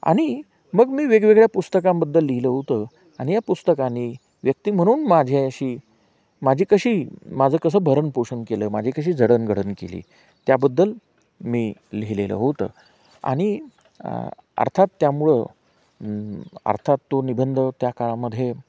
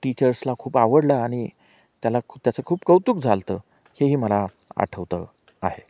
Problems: constant background noise, background conversations at intervals